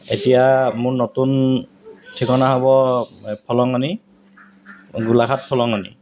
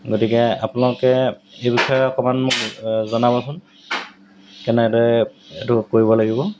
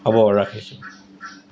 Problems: background sounds at intervals